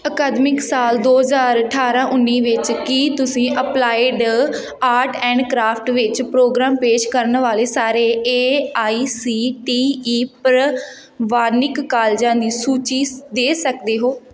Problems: continuous background conversations